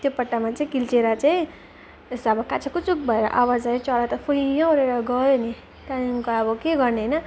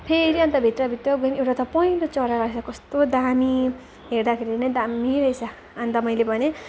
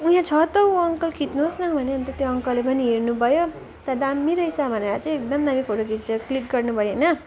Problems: none marked